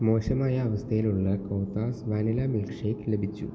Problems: constant background noise, low volume